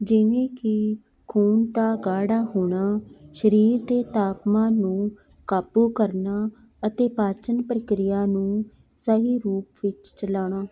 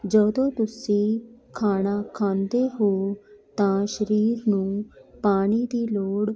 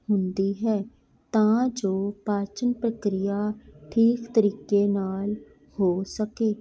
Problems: continuous background conversations